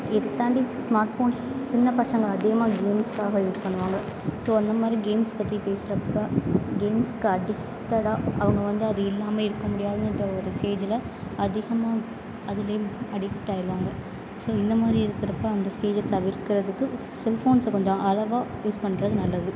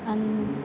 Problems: constant background noise